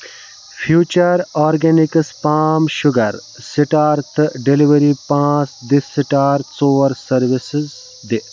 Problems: constant background noise